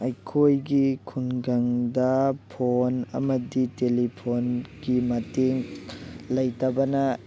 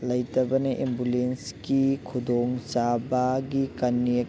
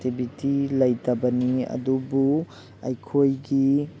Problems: none marked